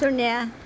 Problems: background sounds at intervals